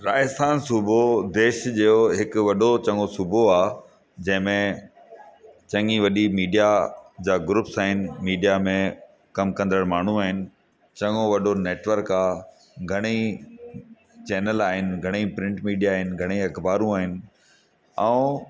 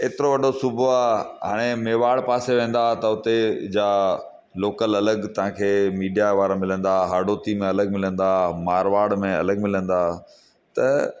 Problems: constant background noise, echo